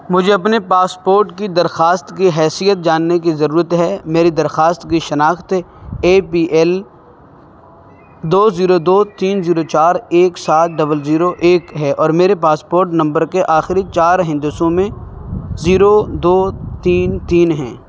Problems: background sounds at intervals